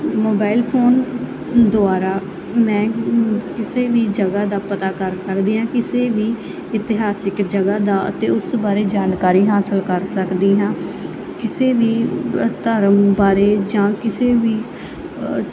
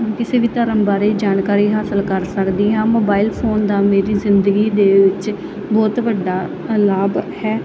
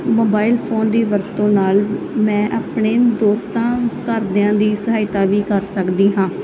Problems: none marked